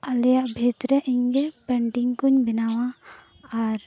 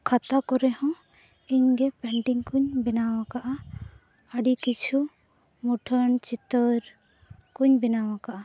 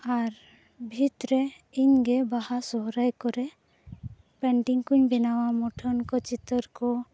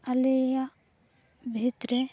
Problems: none marked